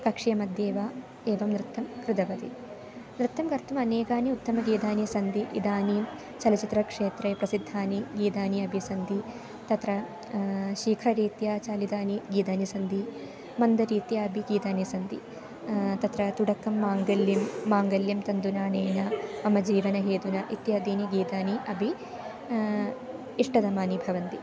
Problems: none marked